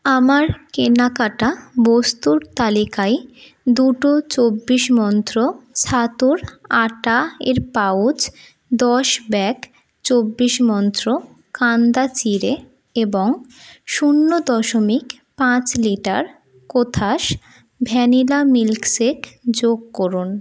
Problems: constant background noise